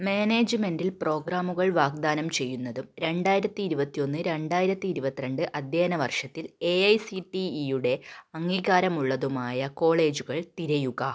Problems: none marked